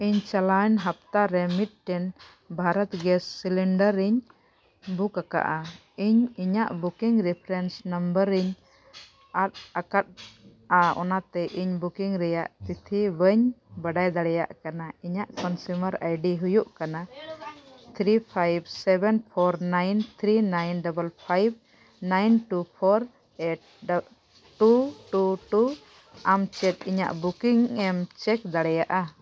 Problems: none marked